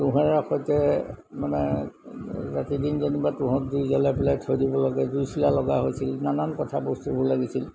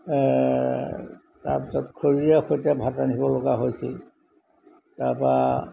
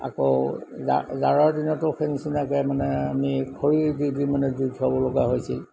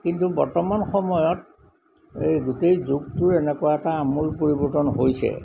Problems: background sounds at intervals